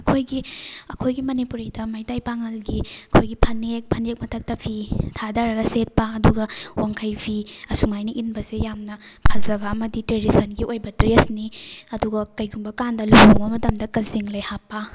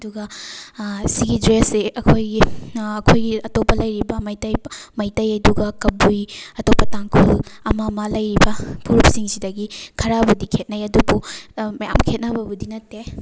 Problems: background sounds at intervals